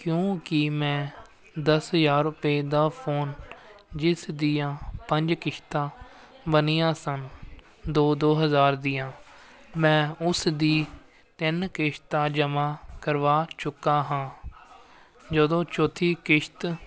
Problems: constant background noise